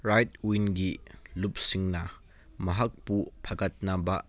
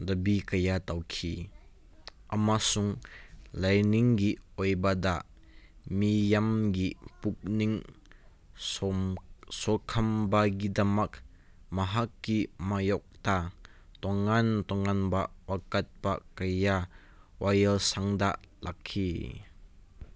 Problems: background sounds at intervals